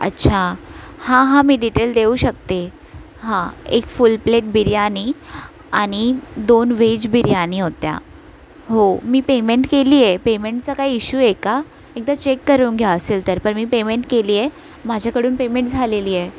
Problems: constant background noise